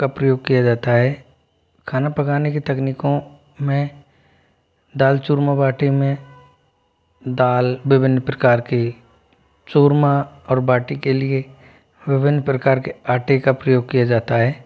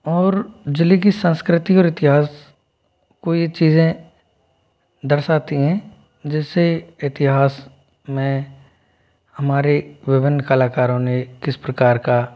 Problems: none marked